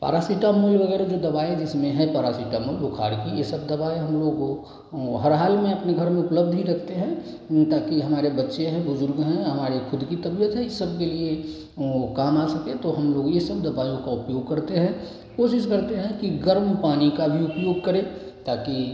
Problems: none marked